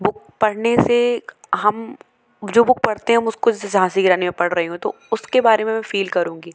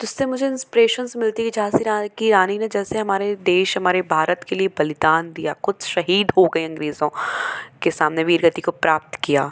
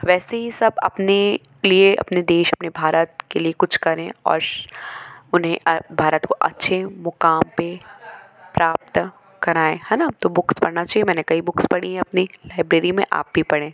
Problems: constant background noise, continuous background conversations